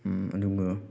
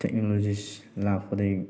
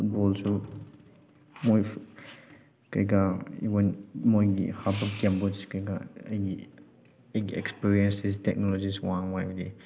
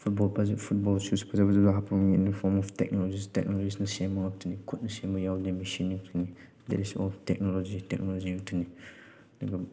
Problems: none marked